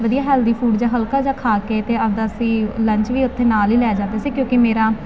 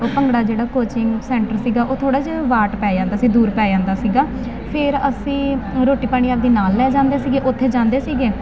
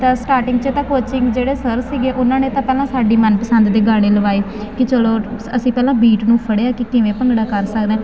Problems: constant background noise